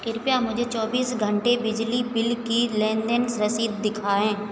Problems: constant background noise, echo